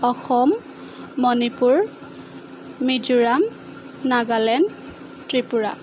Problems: constant background noise